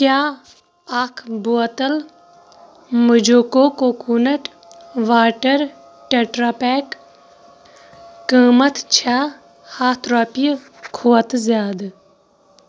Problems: constant background noise